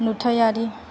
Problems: constant background noise